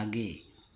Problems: none marked